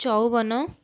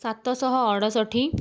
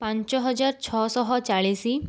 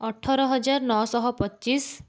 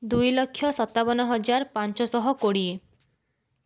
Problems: none marked